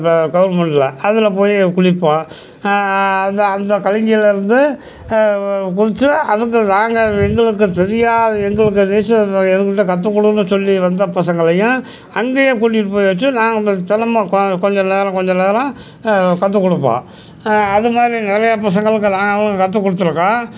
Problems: constant background noise, background conversations at intervals